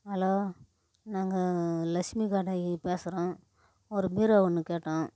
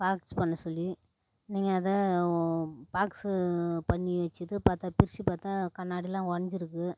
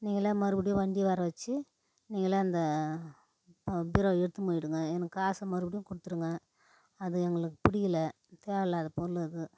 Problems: none marked